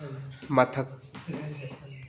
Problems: background conversations at intervals